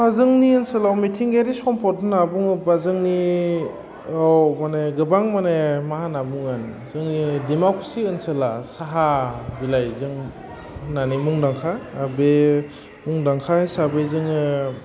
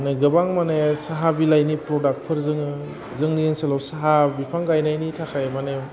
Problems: constant background noise